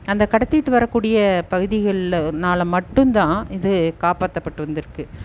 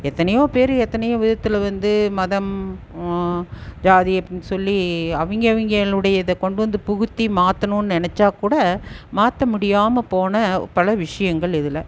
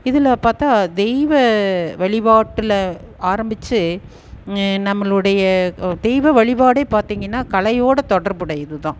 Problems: none marked